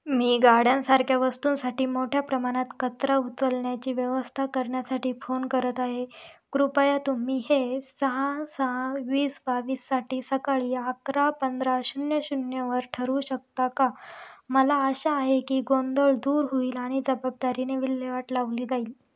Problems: none marked